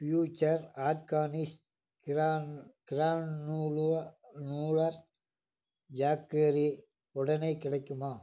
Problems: low volume